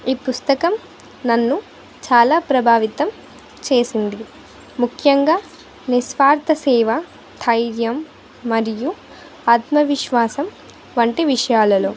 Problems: none marked